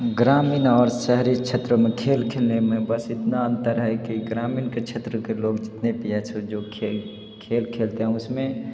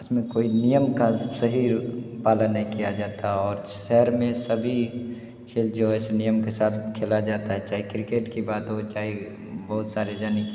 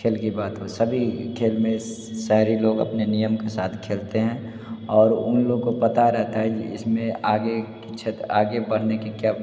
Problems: background sounds at intervals, background conversations at intervals, echo